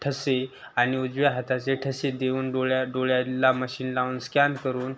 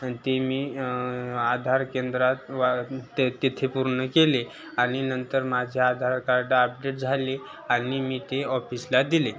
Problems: constant background noise, continuous background conversations